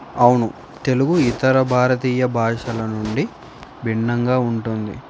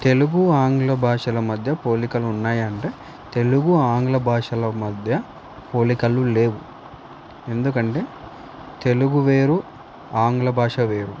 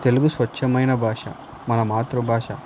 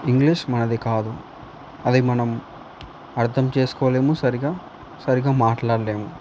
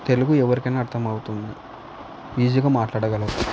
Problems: constant background noise